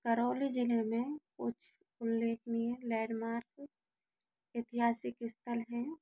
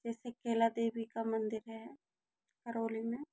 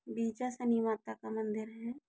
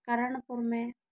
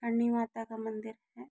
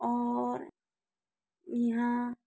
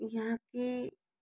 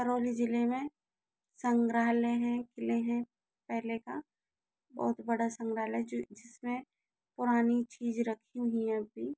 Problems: low volume